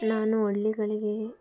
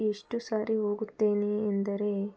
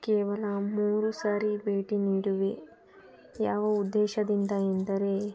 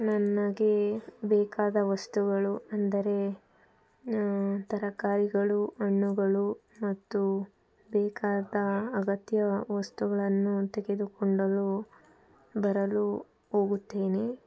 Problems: background conversations at intervals